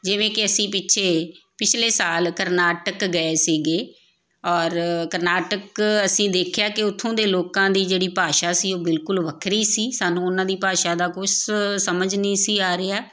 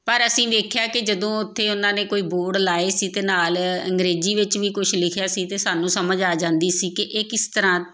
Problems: none marked